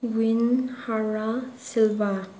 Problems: none marked